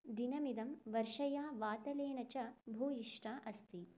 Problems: none marked